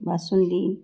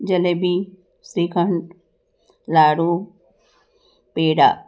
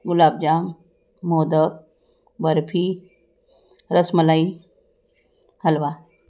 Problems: background sounds at intervals